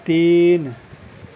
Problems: constant background noise